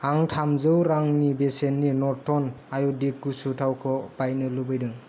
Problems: none marked